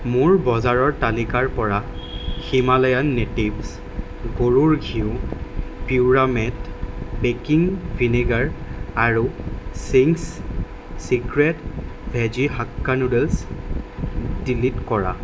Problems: constant background noise